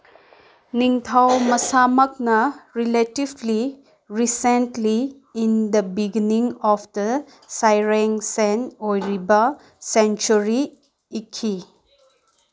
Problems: background sounds at intervals, background conversations at intervals